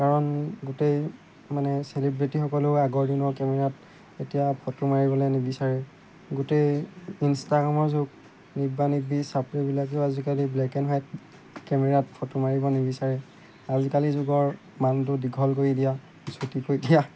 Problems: constant background noise